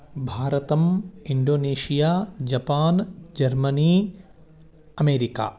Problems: background conversations at intervals